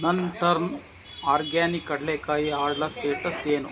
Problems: constant background noise